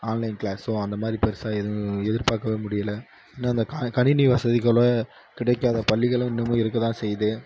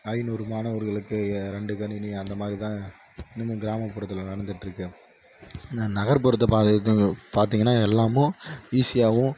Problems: background sounds at intervals